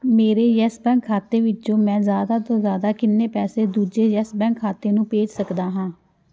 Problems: background sounds at intervals